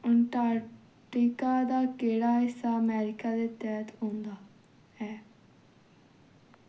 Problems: none marked